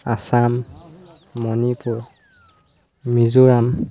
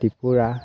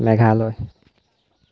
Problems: constant background noise